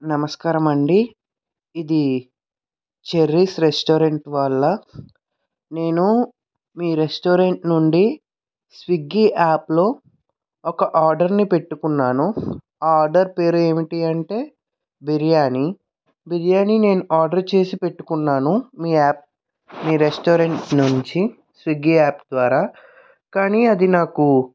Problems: background sounds at intervals